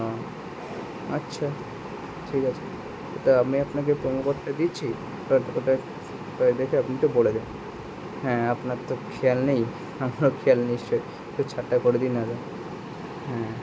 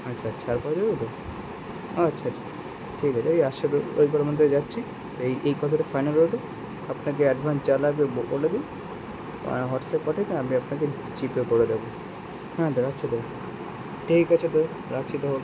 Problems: constant background noise